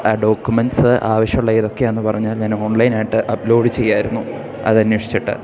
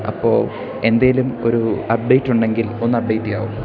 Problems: none marked